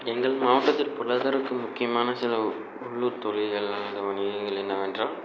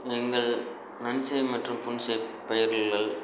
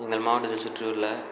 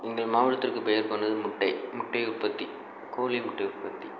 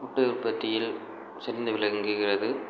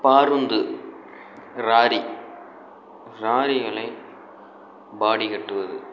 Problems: constant background noise